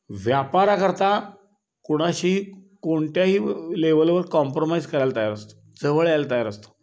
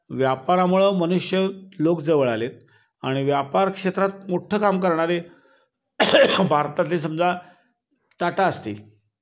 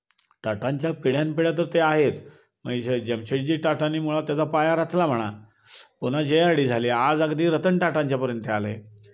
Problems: constant background noise